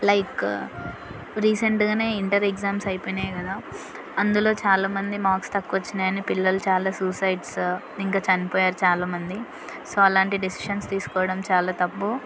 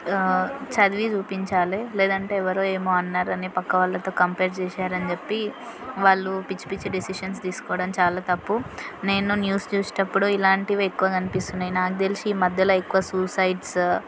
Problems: constant background noise, background conversations at intervals